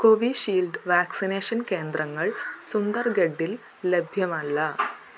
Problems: constant background noise, low volume